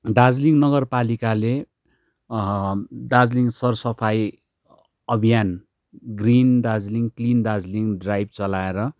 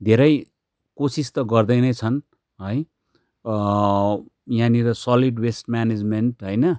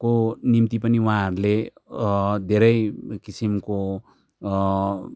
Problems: none marked